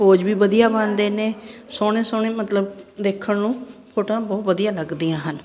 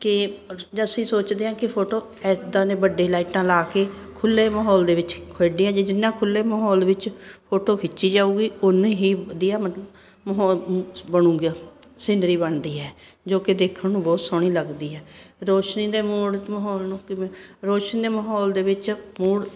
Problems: constant background noise